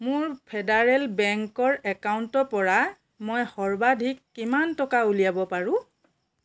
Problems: none marked